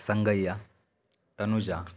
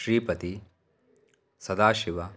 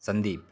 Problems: none marked